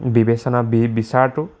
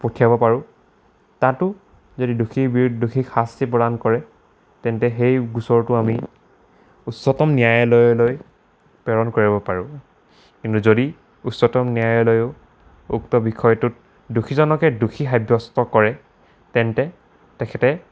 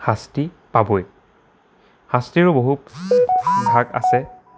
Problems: constant background noise